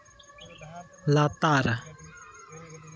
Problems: continuous background conversations